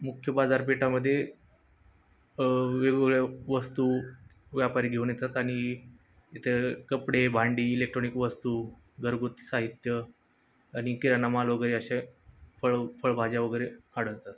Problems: constant background noise, background conversations at intervals